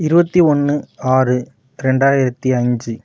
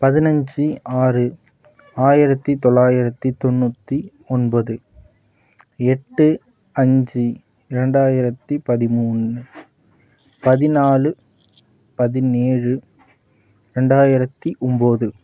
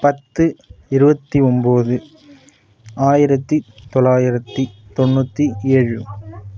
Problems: background sounds at intervals